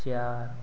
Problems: none marked